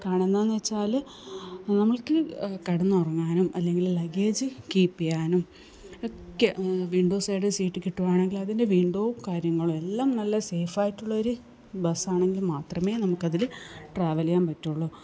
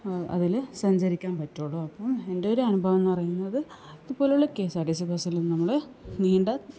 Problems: none marked